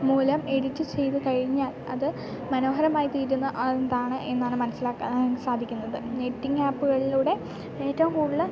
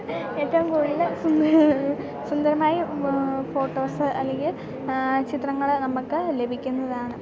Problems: background sounds at intervals, background conversations at intervals